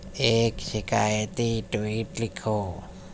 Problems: constant background noise